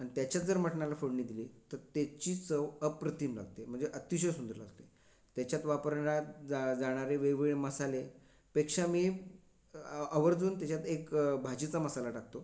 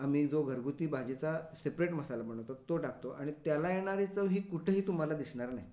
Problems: constant background noise